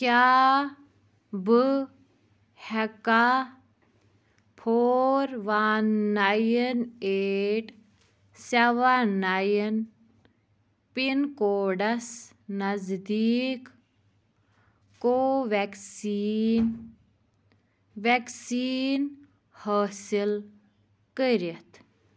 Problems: background sounds at intervals